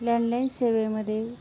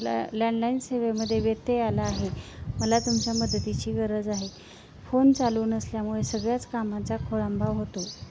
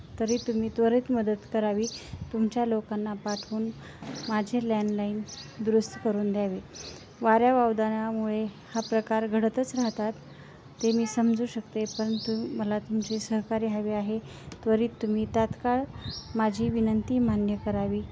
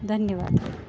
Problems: constant background noise, continuous background conversations